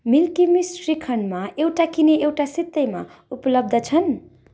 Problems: none marked